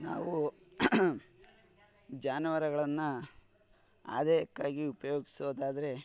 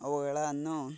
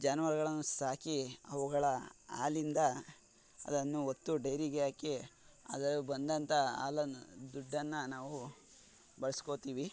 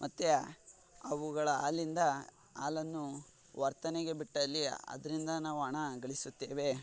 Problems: none marked